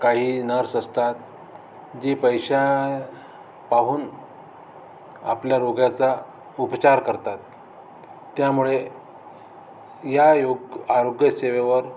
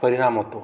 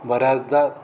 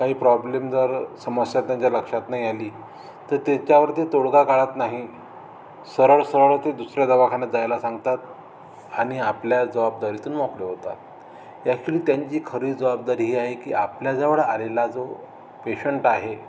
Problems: none marked